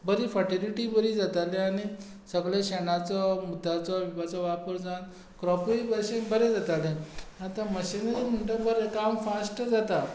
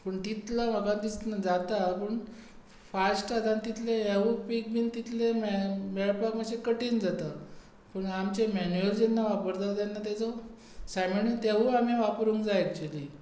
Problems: constant background noise